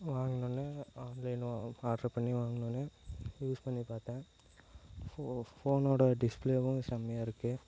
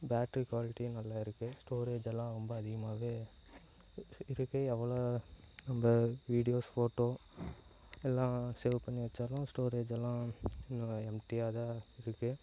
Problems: low volume